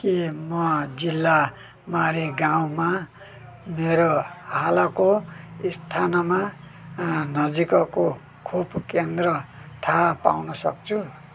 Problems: constant background noise